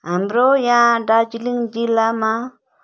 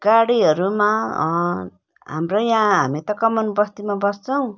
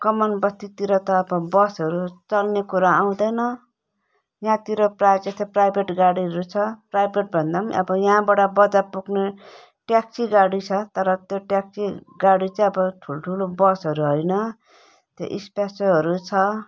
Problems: none marked